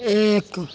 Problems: constant background noise